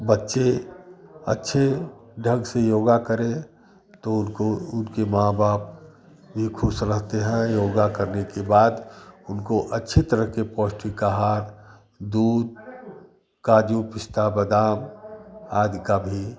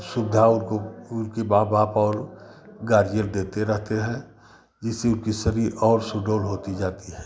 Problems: constant background noise